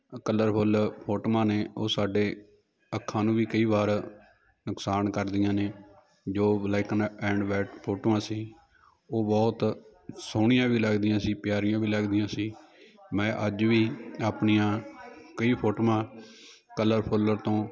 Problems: continuous background conversations